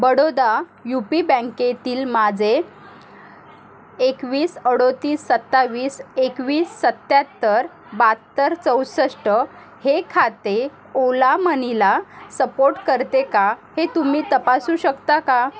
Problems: constant background noise, continuous background conversations